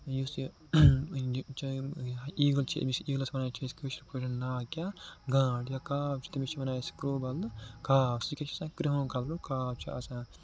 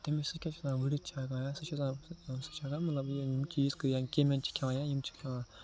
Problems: constant background noise, low volume